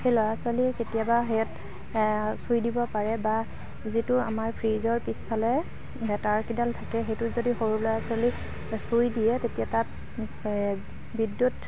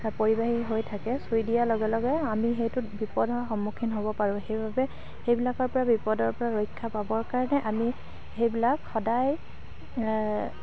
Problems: background sounds at intervals, low volume